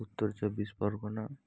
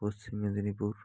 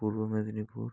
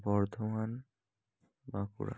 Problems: low volume